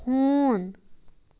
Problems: constant background noise